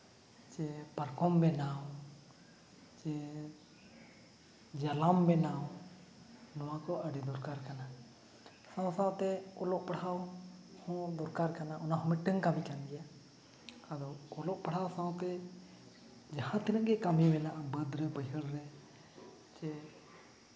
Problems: background sounds at intervals